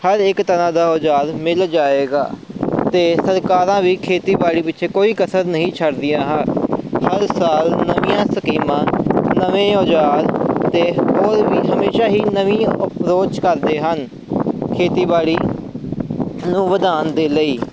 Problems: constant background noise